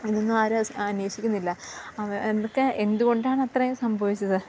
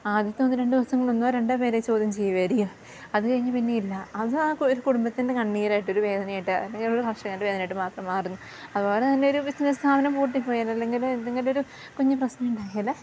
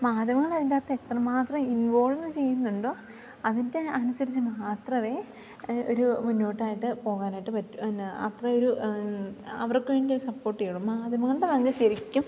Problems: none marked